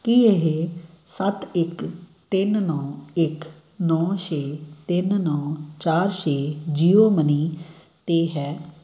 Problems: background sounds at intervals